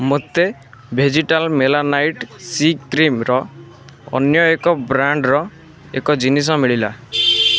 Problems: constant background noise